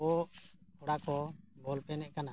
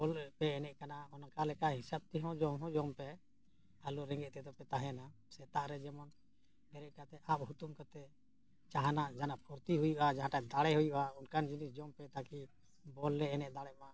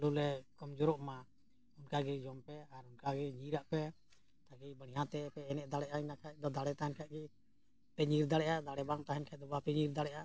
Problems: none marked